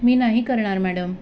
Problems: constant background noise, background conversations at intervals